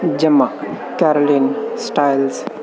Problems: constant background noise